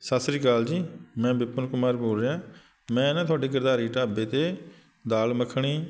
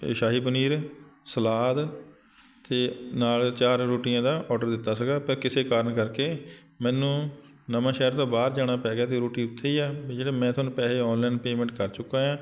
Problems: constant background noise